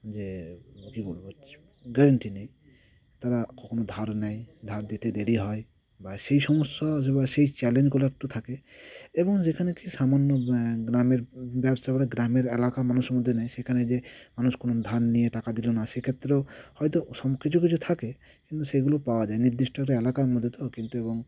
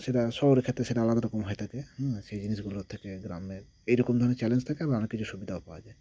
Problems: none marked